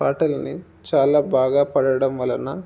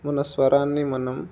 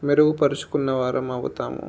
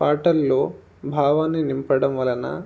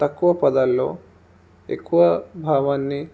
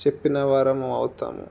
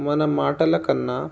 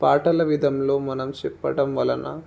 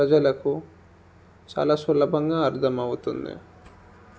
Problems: none marked